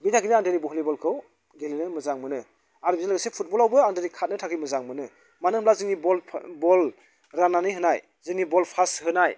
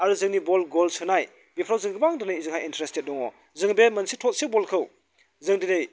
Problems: none marked